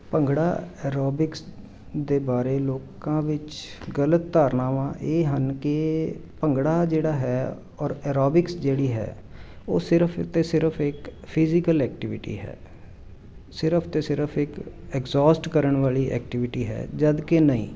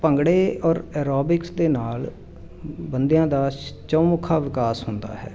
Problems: constant background noise